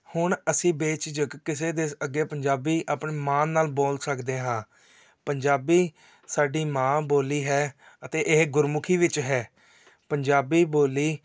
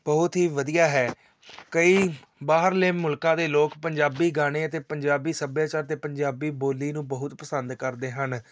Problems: background conversations at intervals